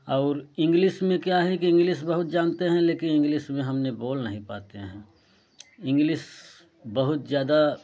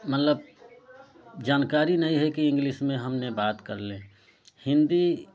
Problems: none marked